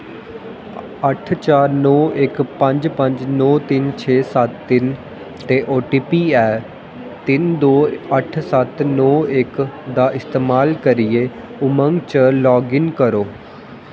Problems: constant background noise, echo